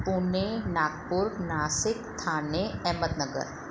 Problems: constant background noise